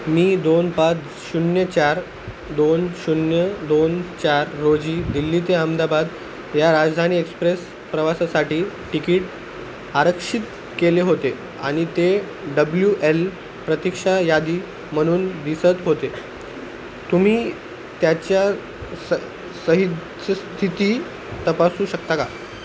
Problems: constant background noise